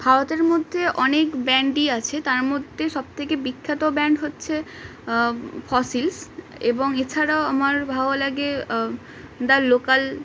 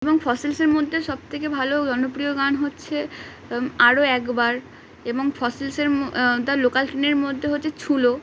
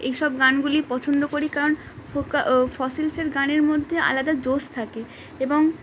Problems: constant background noise